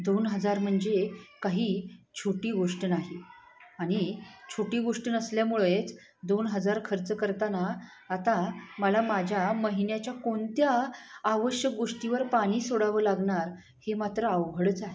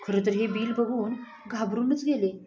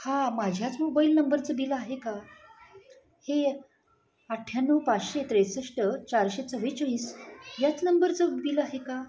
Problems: constant background noise, continuous background conversations